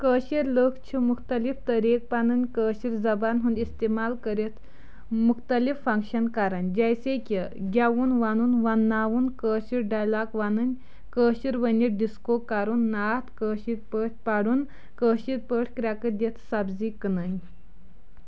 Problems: none marked